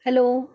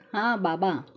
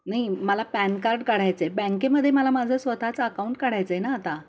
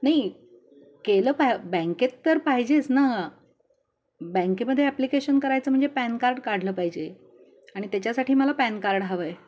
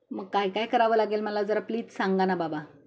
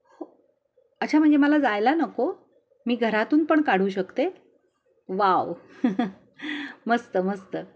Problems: constant background noise, continuous background conversations